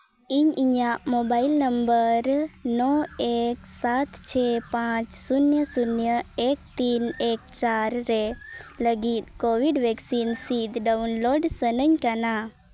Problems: background sounds at intervals